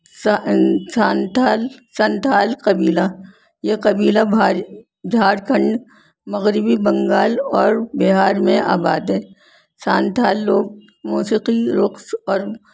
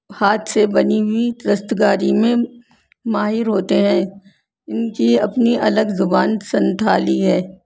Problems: constant background noise